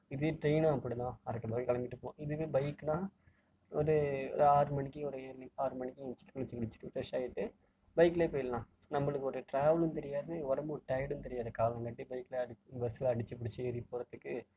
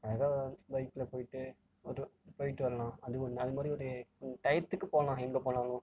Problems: background sounds at intervals, low volume